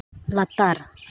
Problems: constant background noise